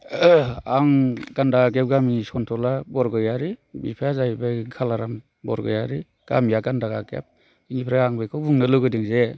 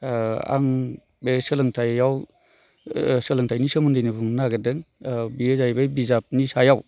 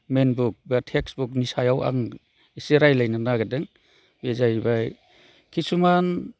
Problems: none marked